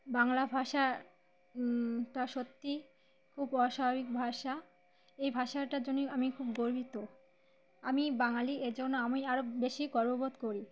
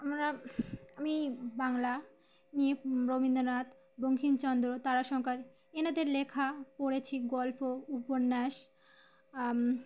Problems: constant background noise, background conversations at intervals